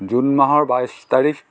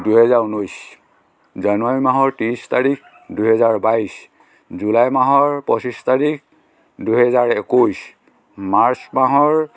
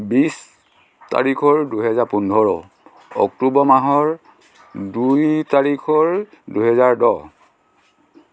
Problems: constant background noise, continuous background conversations